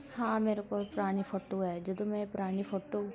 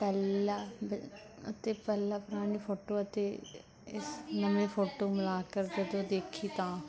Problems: continuous background conversations